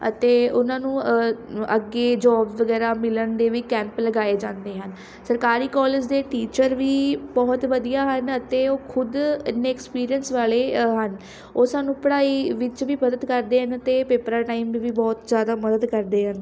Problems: constant background noise